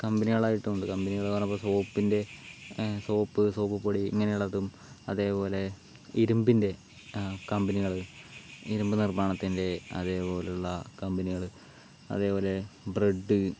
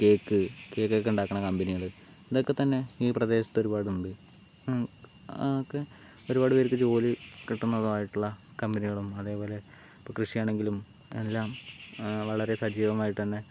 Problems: background sounds at intervals, low volume